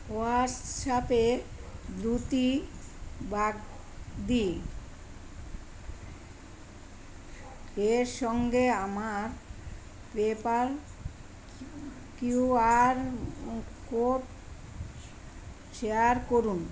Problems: none marked